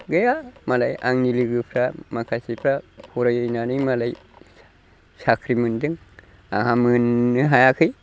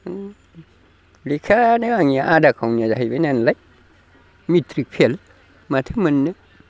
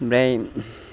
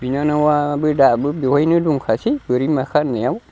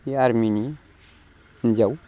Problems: constant background noise